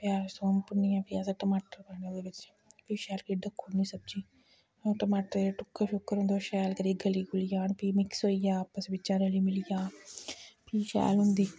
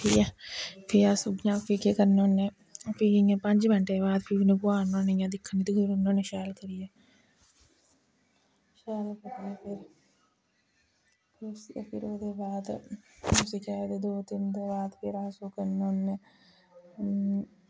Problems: background sounds at intervals, low volume